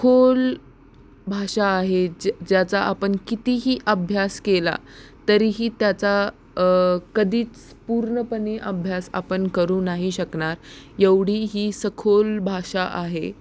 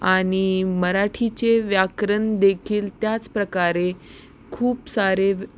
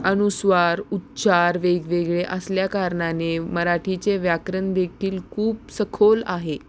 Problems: constant background noise, background conversations at intervals